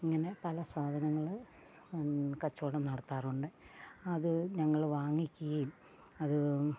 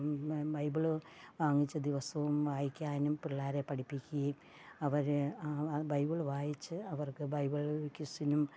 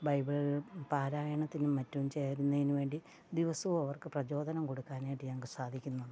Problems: background sounds at intervals, low volume